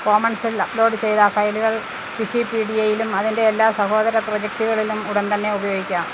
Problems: none marked